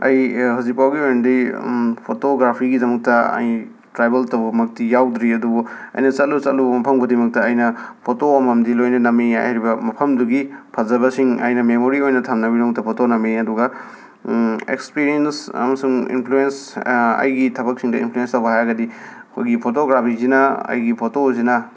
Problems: background sounds at intervals